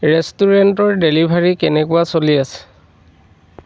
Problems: none marked